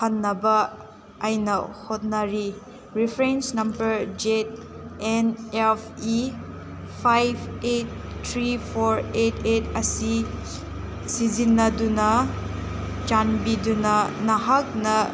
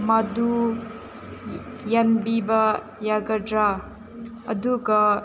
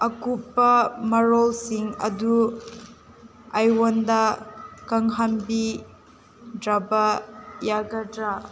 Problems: constant background noise